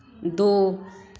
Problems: background sounds at intervals